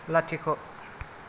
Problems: low volume